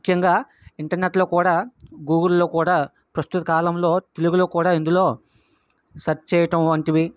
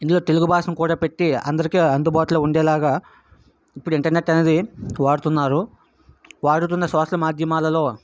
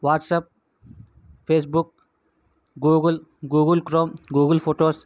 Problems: background sounds at intervals